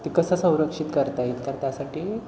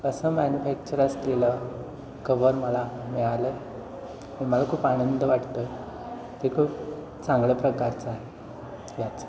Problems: constant background noise, background conversations at intervals, echo